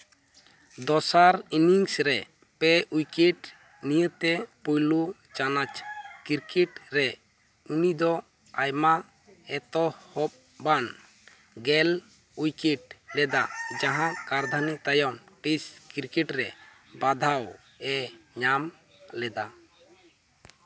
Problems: none marked